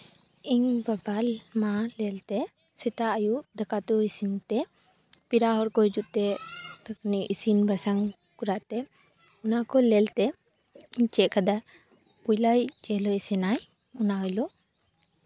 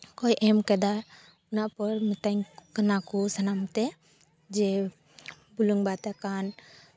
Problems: none marked